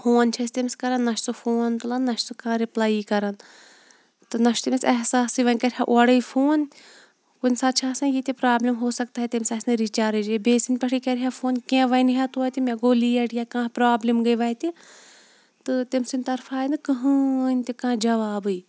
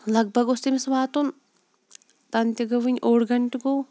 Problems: none marked